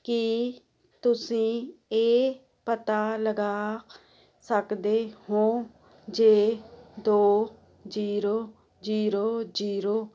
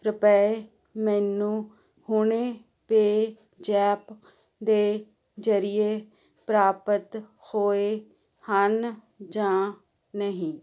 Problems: constant background noise